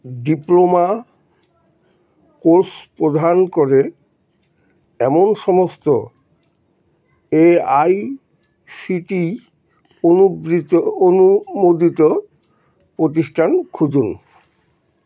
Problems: none marked